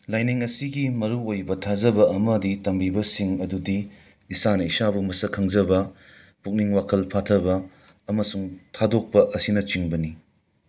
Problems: none marked